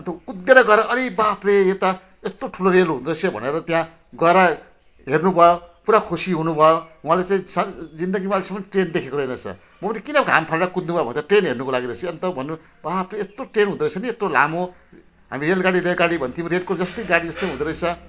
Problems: none marked